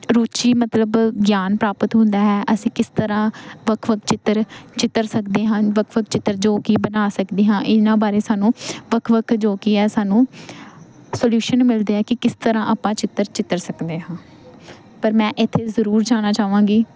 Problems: background sounds at intervals